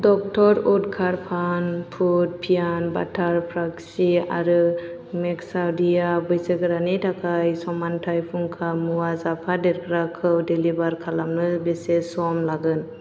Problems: constant background noise